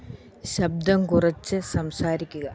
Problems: constant background noise